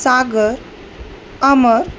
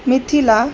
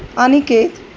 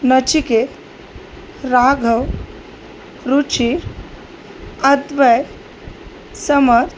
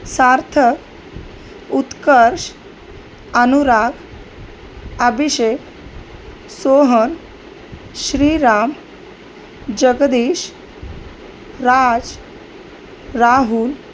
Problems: none marked